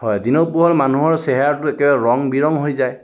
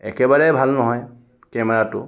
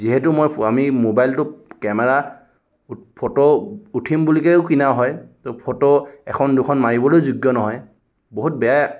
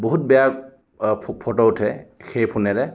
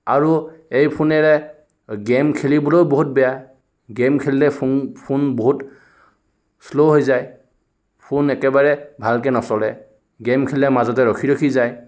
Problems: background sounds at intervals